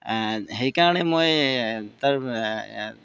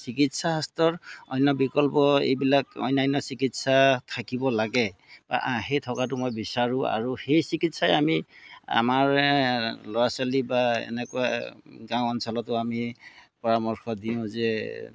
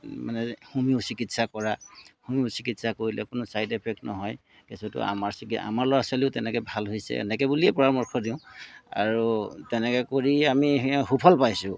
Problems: background sounds at intervals